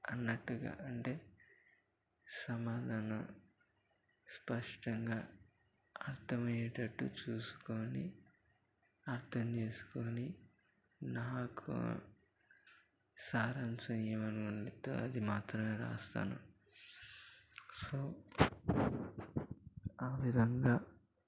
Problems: constant background noise, low volume